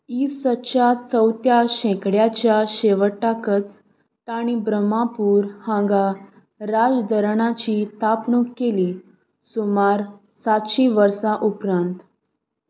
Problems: background sounds at intervals